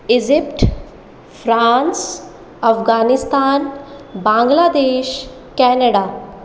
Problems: echo